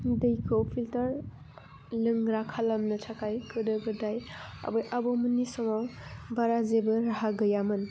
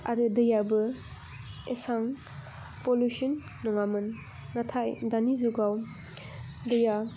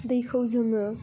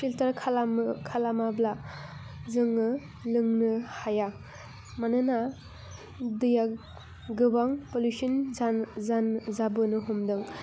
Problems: low volume